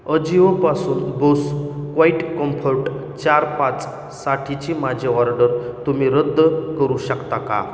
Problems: background sounds at intervals, echo